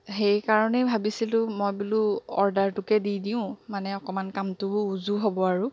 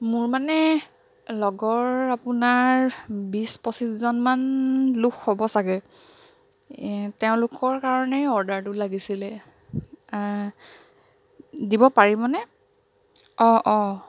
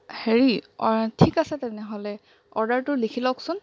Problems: none marked